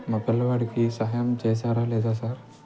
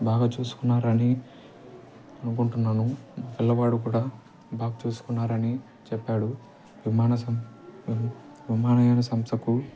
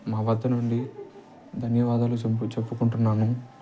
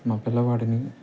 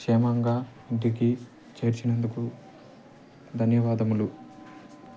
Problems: constant background noise